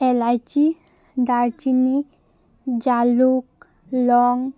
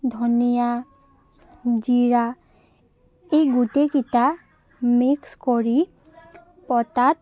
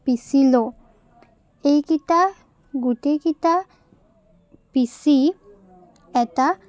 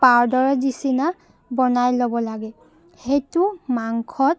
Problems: constant background noise